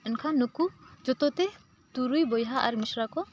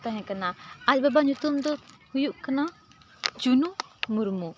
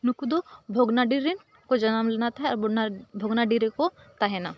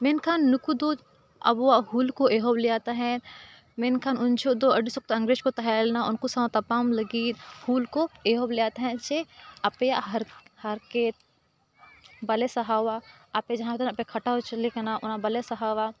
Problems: background conversations at intervals